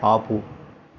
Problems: constant background noise